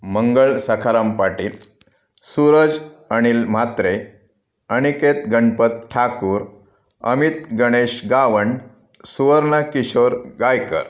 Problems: background conversations at intervals